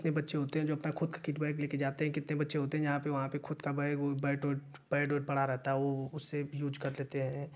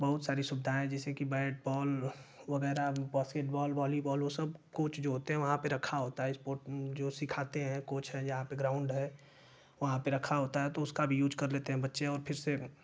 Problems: constant background noise